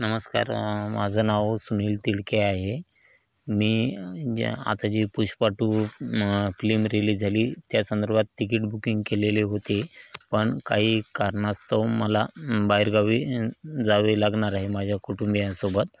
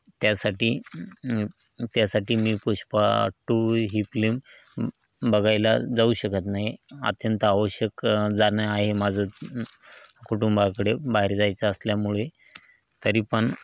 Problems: constant background noise, background conversations at intervals